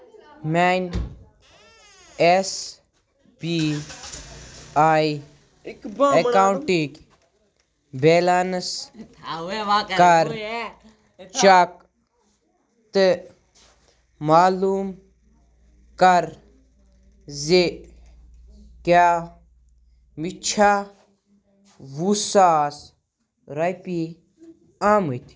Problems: constant background noise, background conversations at intervals